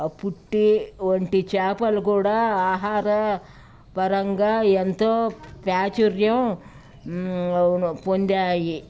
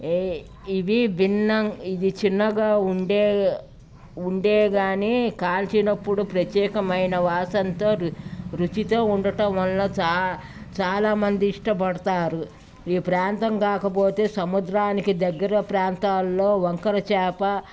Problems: none marked